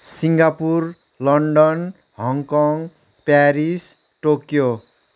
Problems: none marked